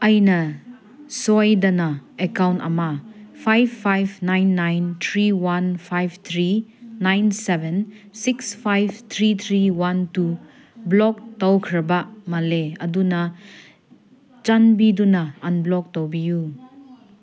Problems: background conversations at intervals